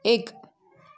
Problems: background conversations at intervals